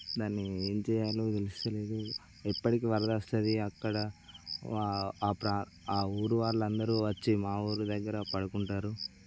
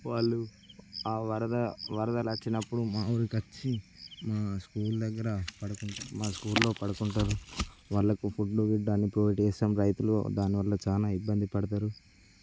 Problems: constant background noise